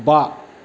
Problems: constant background noise